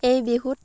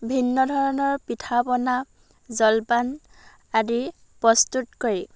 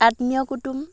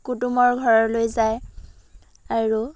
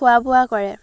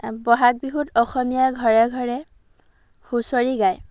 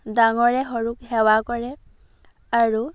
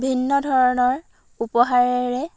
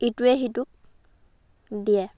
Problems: background sounds at intervals